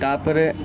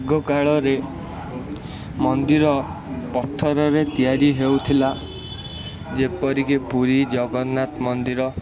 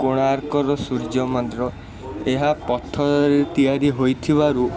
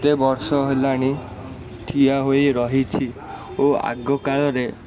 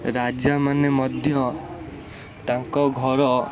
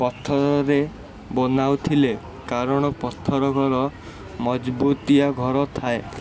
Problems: constant background noise, continuous background conversations